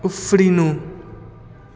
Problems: echo